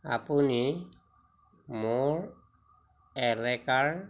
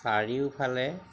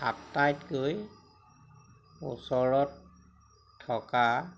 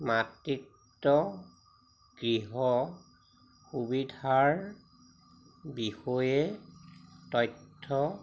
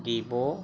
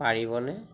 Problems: none marked